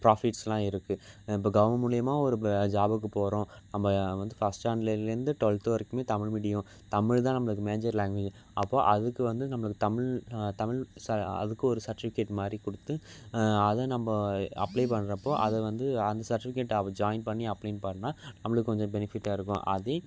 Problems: none marked